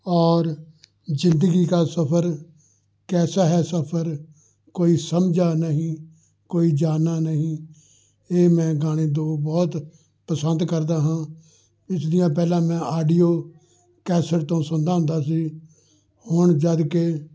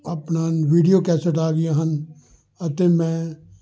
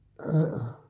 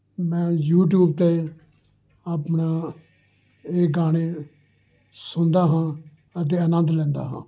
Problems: background conversations at intervals